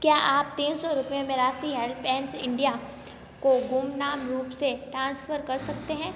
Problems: none marked